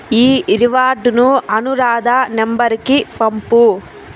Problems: constant background noise